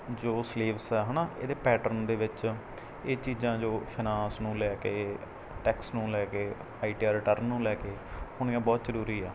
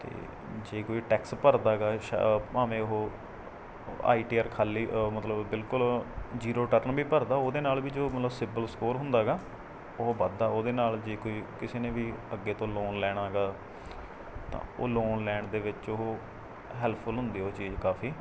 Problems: none marked